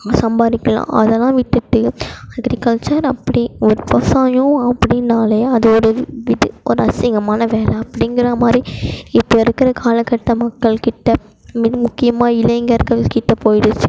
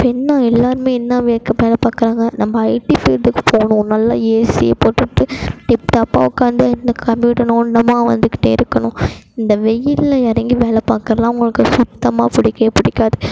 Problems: constant background noise